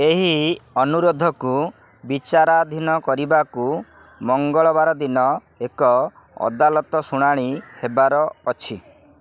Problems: none marked